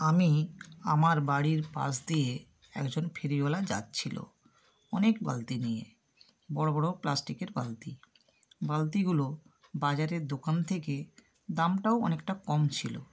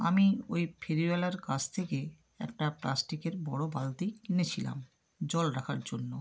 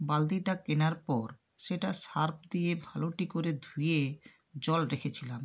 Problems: none marked